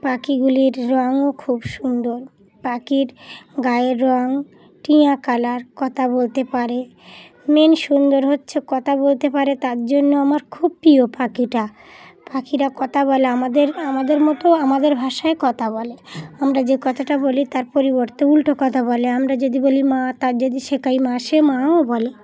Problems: background sounds at intervals, background conversations at intervals